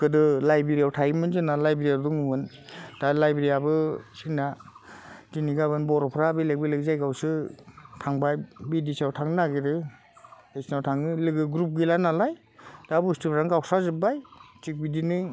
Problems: constant background noise